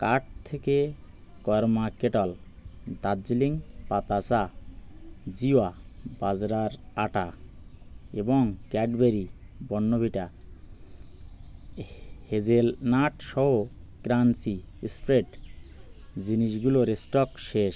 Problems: constant background noise